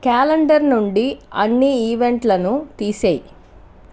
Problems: constant background noise